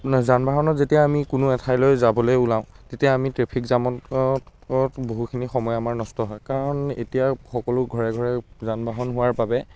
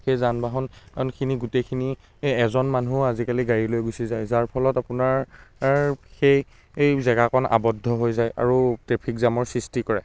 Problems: constant background noise